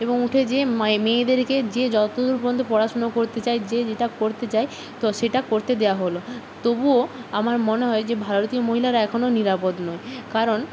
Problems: constant background noise